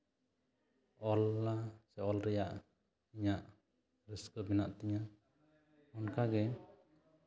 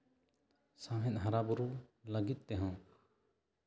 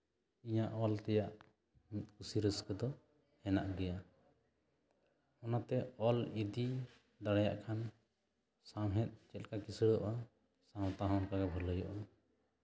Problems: none marked